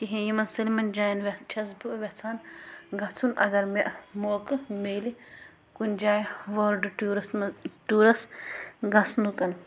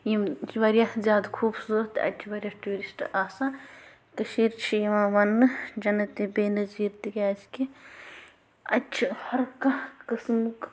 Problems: constant background noise, low volume